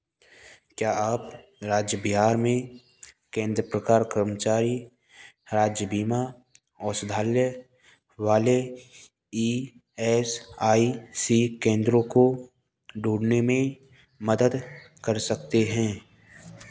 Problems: none marked